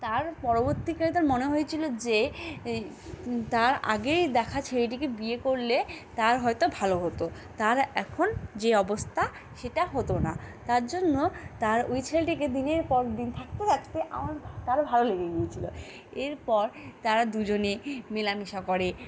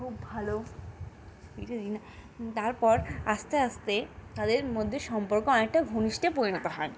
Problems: constant background noise, continuous background conversations